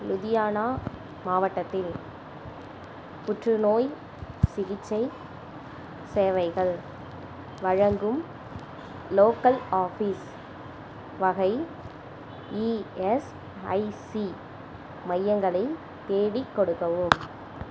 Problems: constant background noise